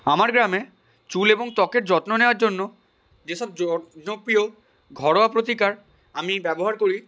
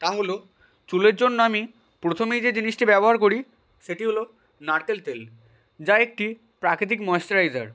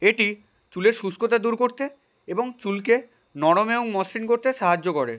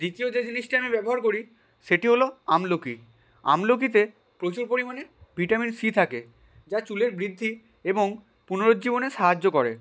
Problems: background sounds at intervals